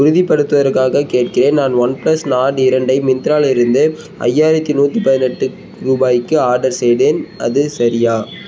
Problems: constant background noise